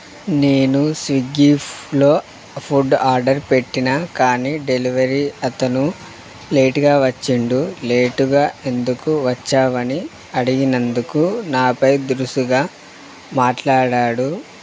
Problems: constant background noise